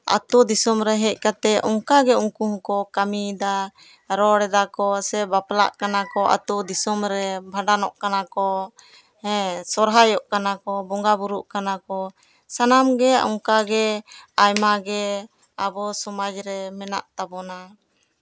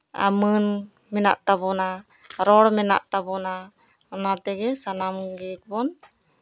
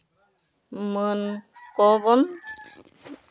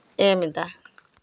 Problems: background conversations at intervals